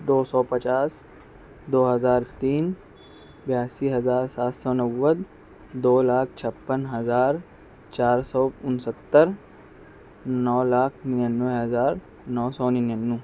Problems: none marked